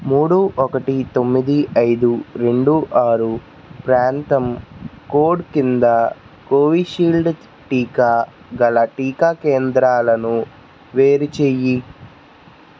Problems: none marked